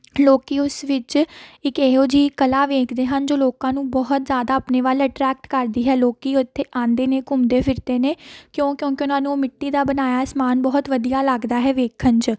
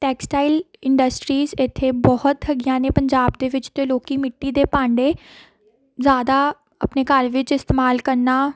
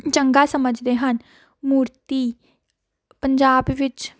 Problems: background sounds at intervals